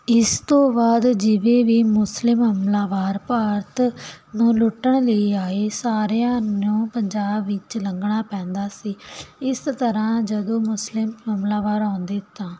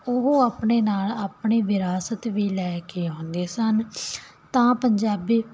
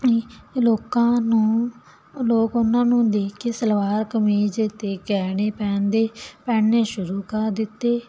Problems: none marked